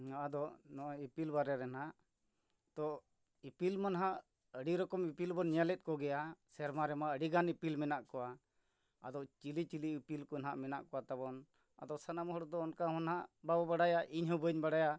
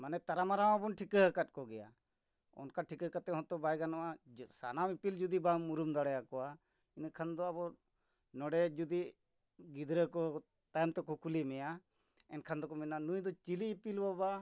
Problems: none marked